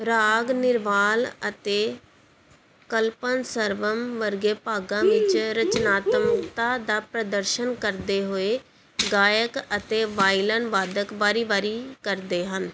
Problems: background sounds at intervals